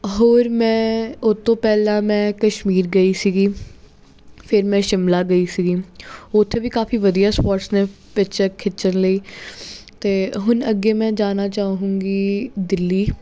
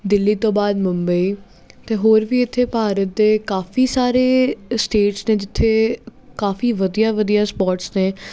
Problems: constant background noise